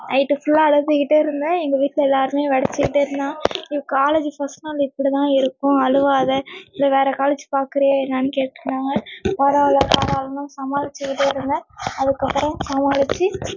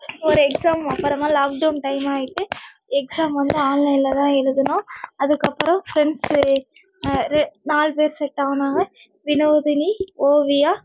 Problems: background sounds at intervals